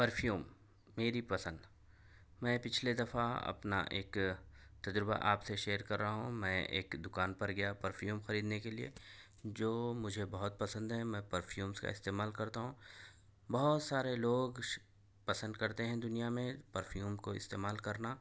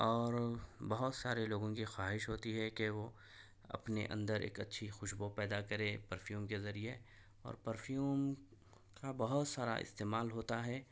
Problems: none marked